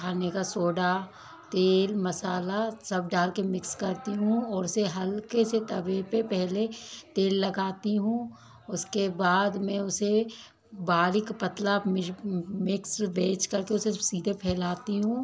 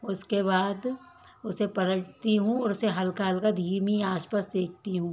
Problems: background conversations at intervals